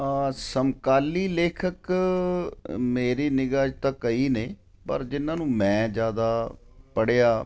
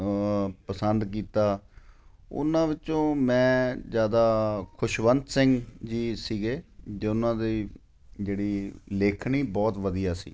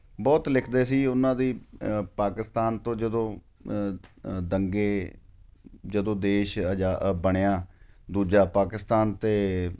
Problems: none marked